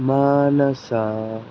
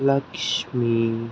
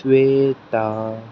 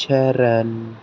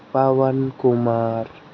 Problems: constant background noise